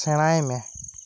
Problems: constant background noise